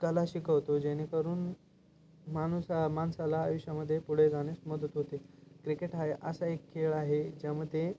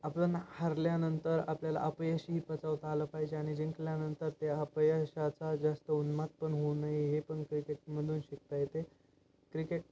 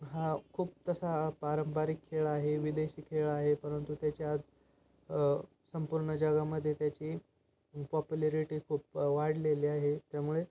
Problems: constant background noise